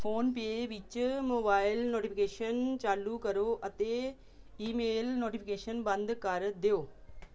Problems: background sounds at intervals